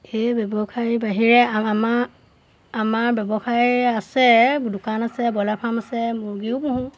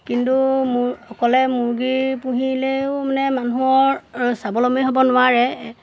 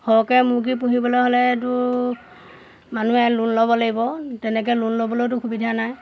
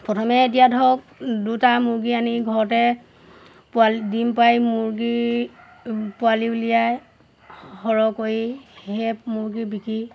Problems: constant background noise, background conversations at intervals